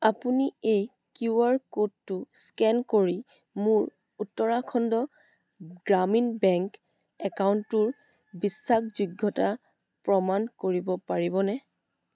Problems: background sounds at intervals